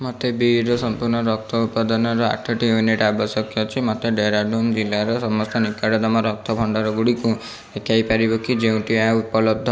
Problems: constant background noise